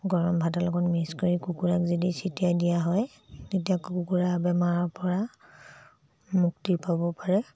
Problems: low volume